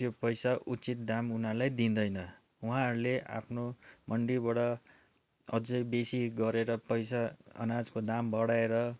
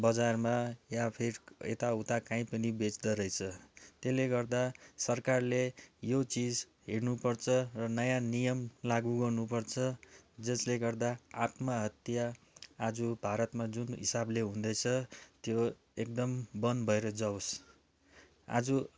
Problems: background sounds at intervals